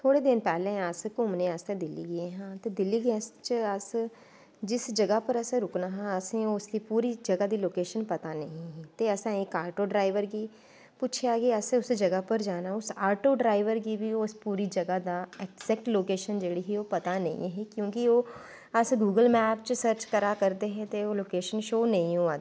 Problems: none marked